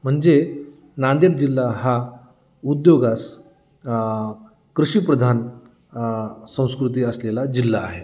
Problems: none marked